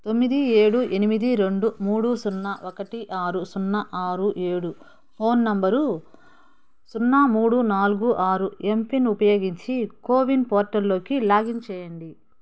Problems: background sounds at intervals